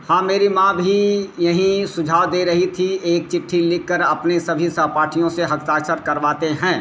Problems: constant background noise